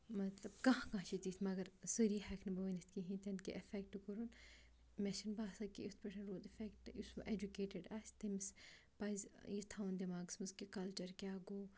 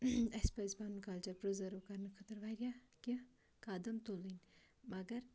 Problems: background sounds at intervals